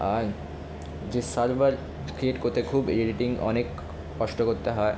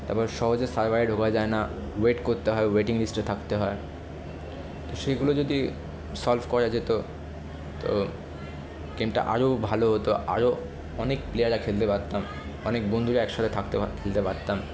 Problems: none marked